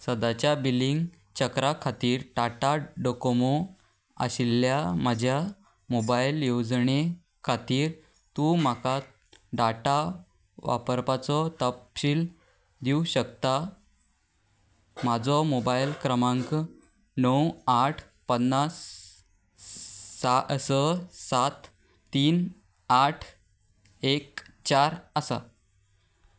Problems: background sounds at intervals